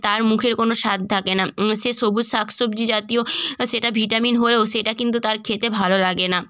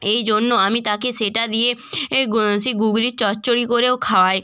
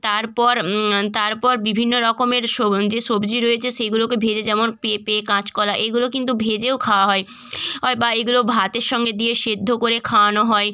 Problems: background conversations at intervals